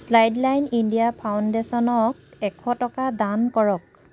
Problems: none marked